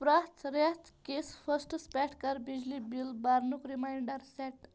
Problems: background sounds at intervals